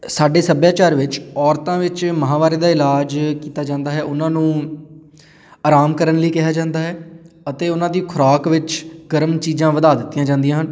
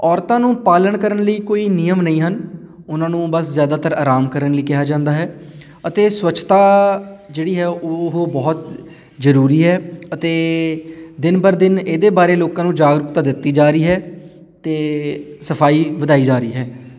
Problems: background sounds at intervals, background conversations at intervals